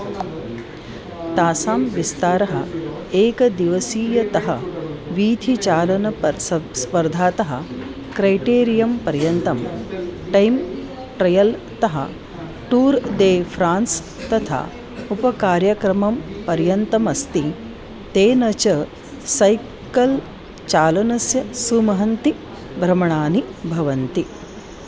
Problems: constant background noise, background conversations at intervals